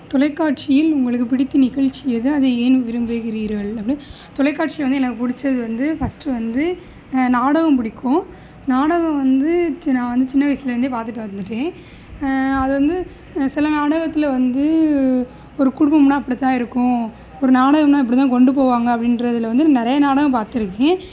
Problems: background sounds at intervals